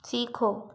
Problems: low volume